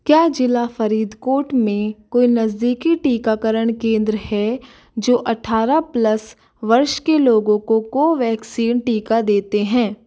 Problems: none marked